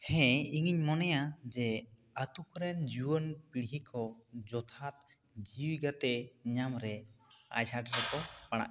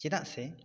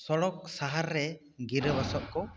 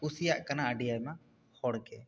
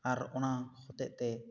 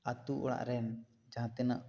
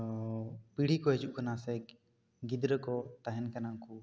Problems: none marked